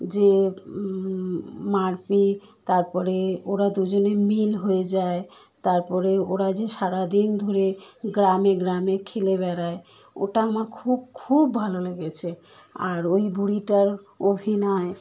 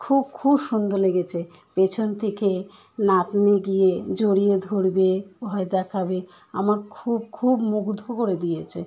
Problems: constant background noise